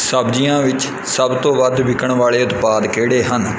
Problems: background sounds at intervals